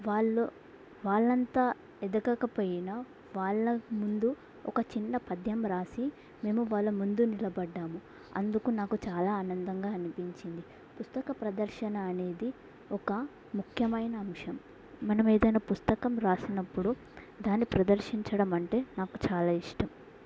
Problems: none marked